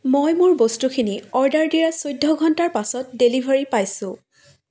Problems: background sounds at intervals